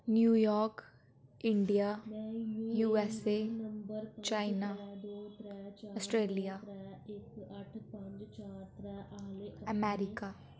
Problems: constant background noise, background conversations at intervals